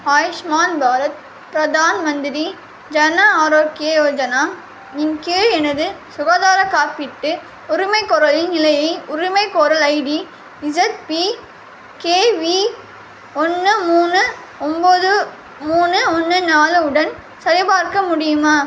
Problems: constant background noise